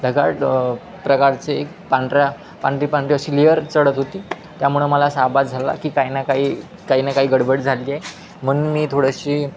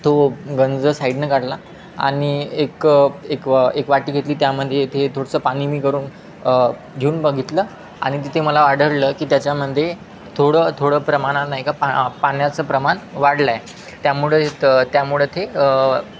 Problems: constant background noise, continuous background conversations